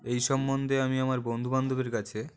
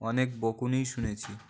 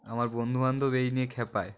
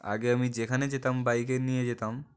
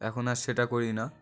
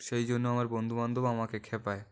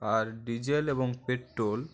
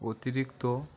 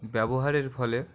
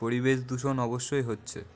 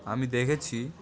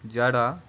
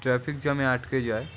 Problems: constant background noise, continuous background conversations